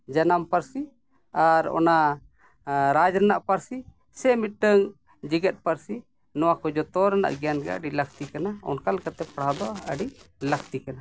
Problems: background sounds at intervals